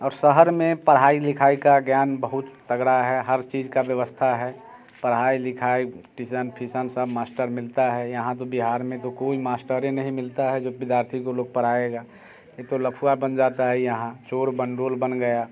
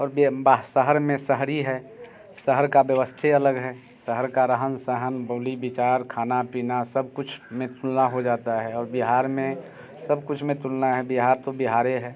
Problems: constant background noise, background conversations at intervals